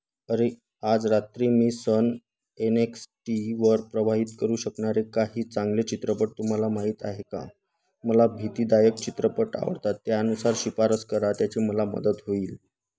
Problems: constant background noise